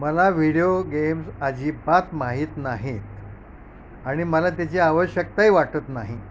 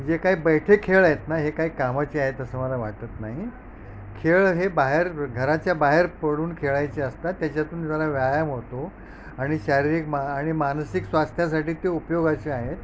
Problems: none marked